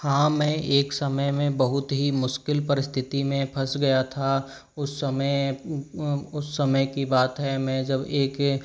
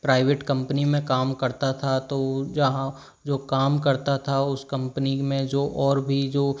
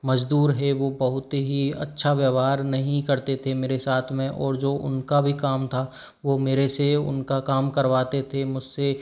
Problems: none marked